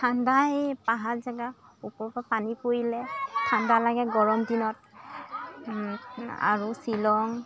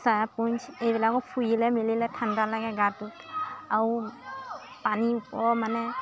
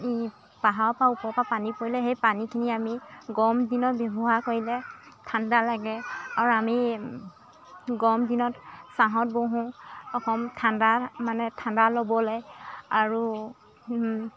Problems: constant background noise, continuous background conversations